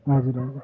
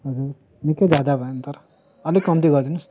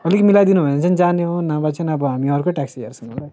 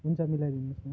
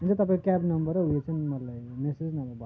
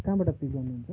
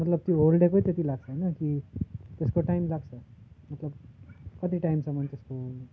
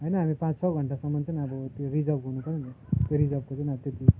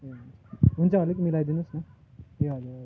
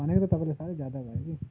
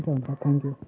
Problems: constant background noise